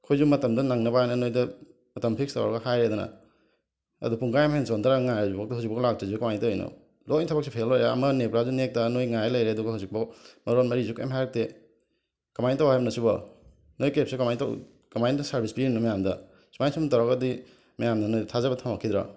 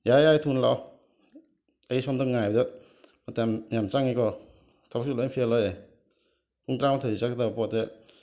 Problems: none marked